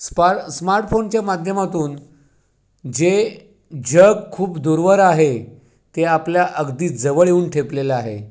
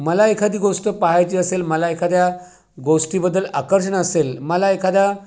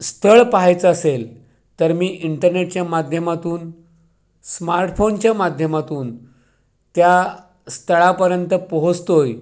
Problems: background sounds at intervals